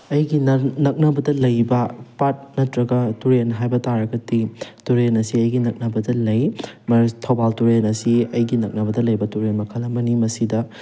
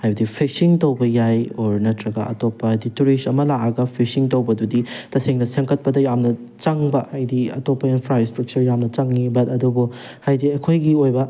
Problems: background sounds at intervals